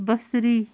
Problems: constant background noise